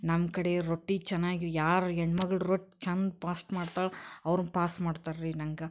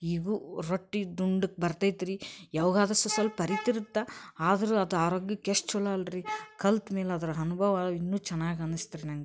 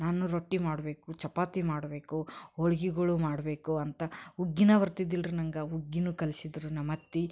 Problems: none marked